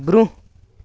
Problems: background sounds at intervals